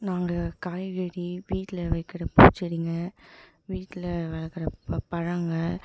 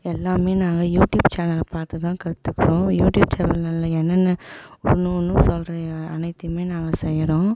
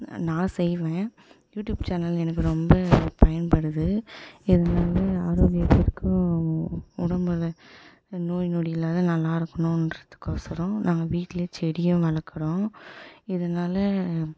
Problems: background sounds at intervals